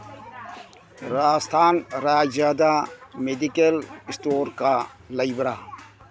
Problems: background sounds at intervals